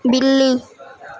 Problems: constant background noise, continuous background conversations